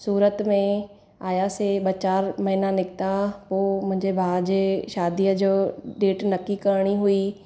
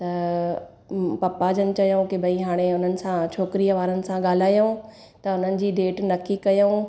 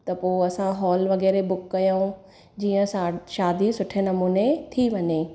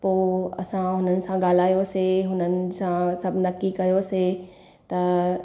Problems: none marked